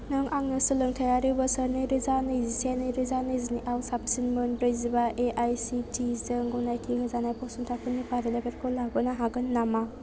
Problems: none marked